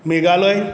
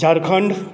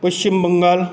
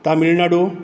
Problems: none marked